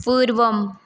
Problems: none marked